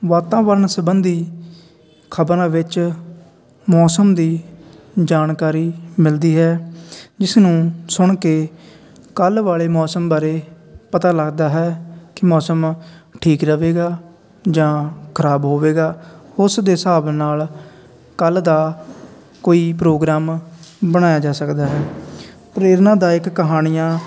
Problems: none marked